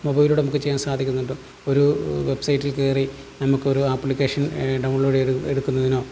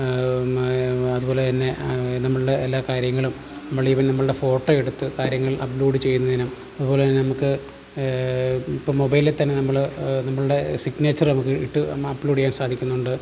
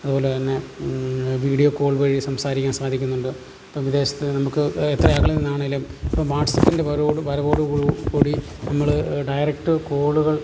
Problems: constant background noise, low volume